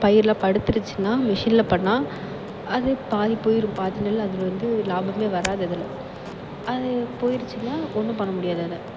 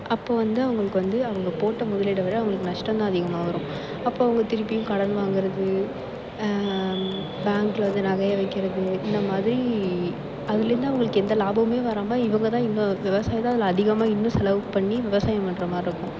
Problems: constant background noise